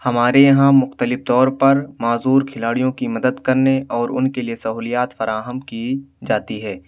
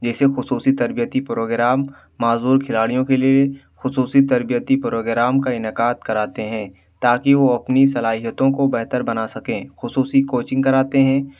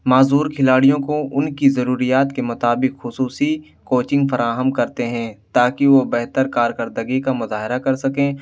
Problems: none marked